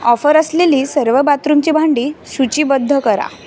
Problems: constant background noise, background conversations at intervals